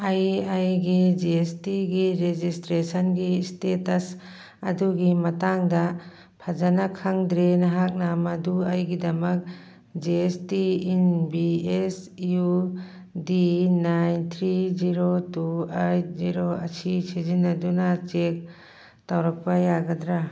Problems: background sounds at intervals